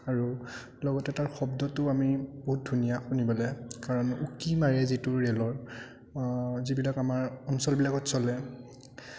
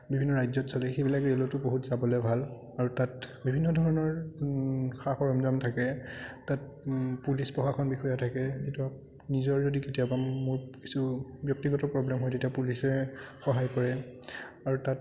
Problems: background sounds at intervals, continuous background conversations